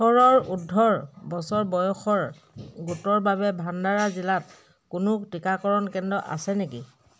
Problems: background sounds at intervals